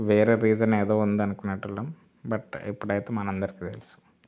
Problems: background sounds at intervals